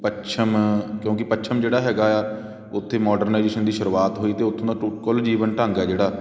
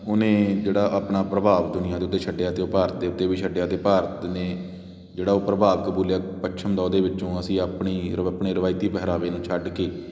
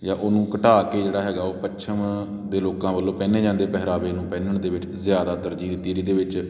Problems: constant background noise